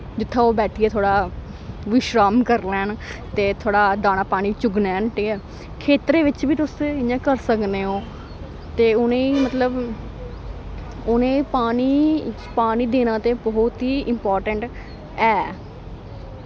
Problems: constant background noise